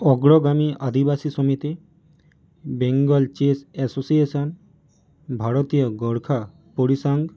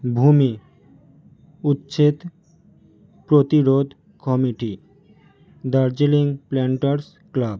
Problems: none marked